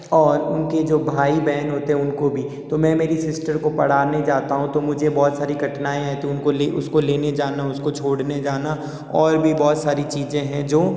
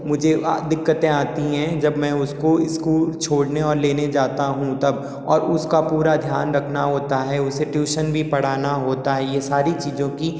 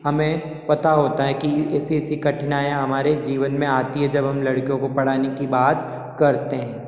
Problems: background sounds at intervals, echo